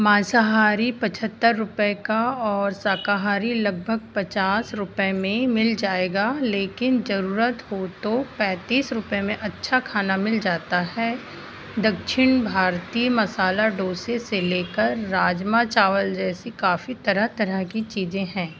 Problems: constant background noise